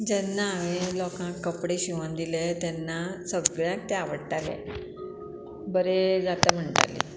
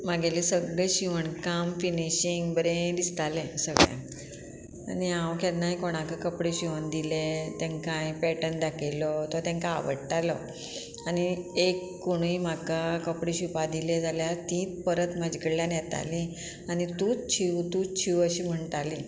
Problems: constant background noise